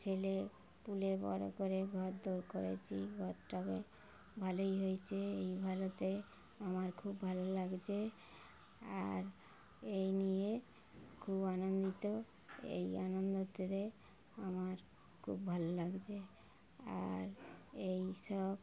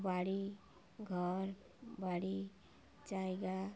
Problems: constant background noise